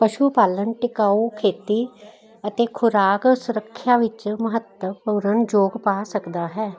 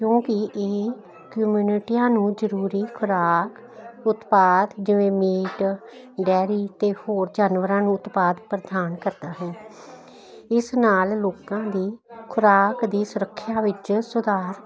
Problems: none marked